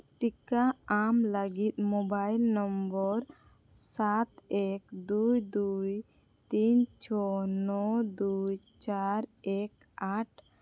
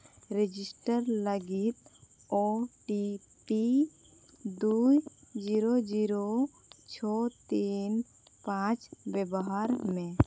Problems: none marked